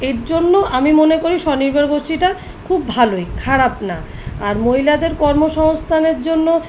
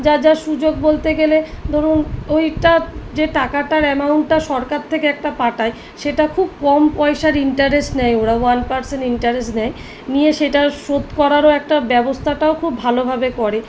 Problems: none marked